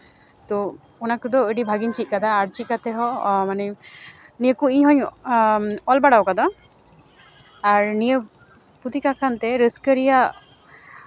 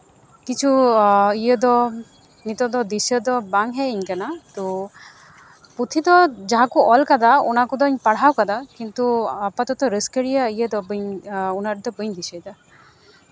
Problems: constant background noise, continuous background conversations